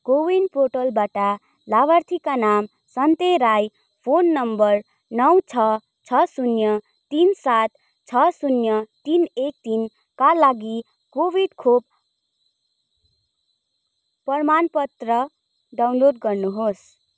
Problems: background sounds at intervals